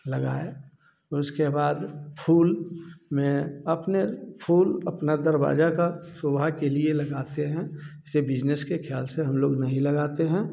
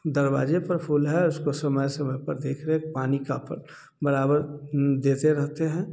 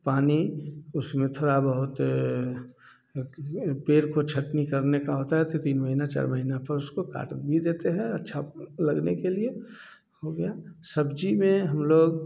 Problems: none marked